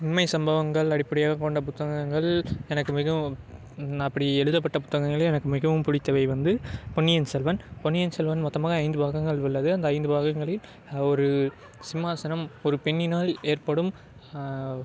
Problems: background sounds at intervals